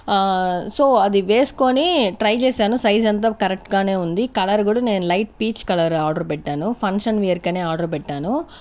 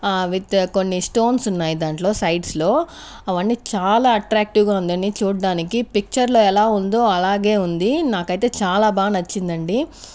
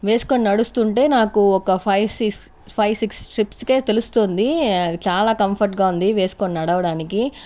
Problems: constant background noise